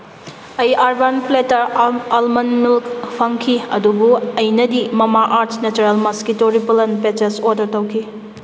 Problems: background sounds at intervals